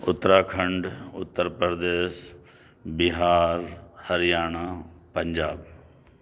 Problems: background sounds at intervals